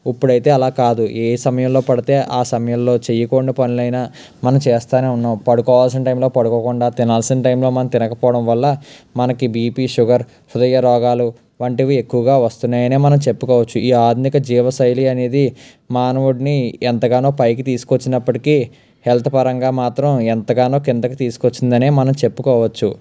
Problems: background sounds at intervals